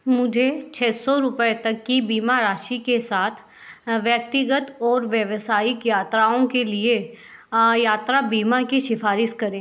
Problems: none marked